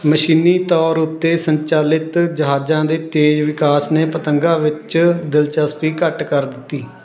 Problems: constant background noise